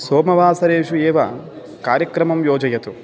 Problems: continuous background conversations